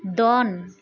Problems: none marked